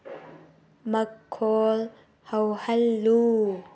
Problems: none marked